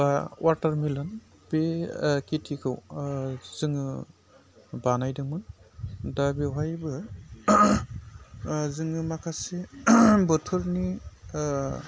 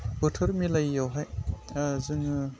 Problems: constant background noise